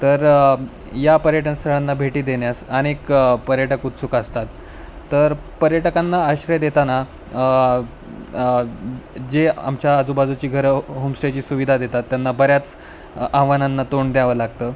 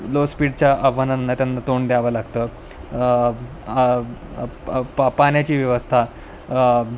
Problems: constant background noise